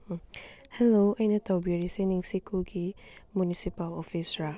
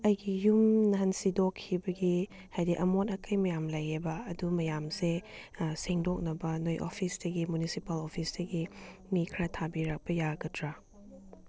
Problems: low volume